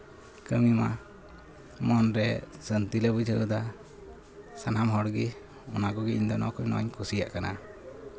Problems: constant background noise